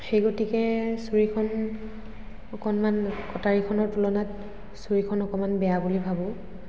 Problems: constant background noise, echo